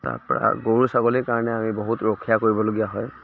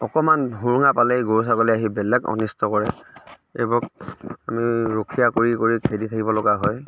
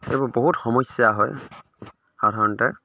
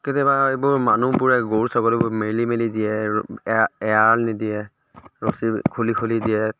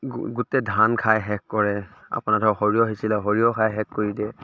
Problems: none marked